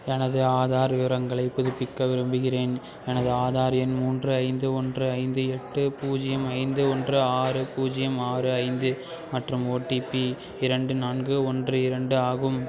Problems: constant background noise, continuous background conversations